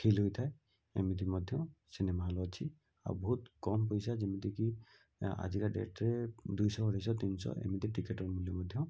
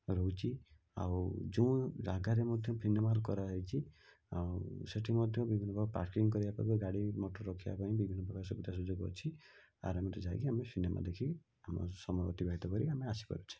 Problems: low volume